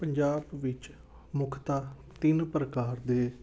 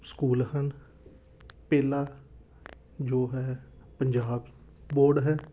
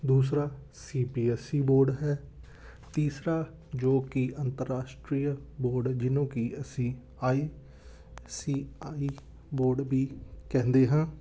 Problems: none marked